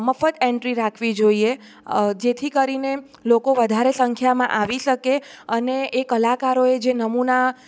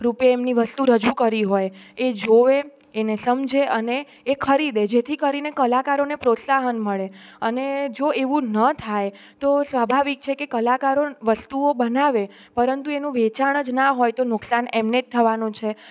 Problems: none marked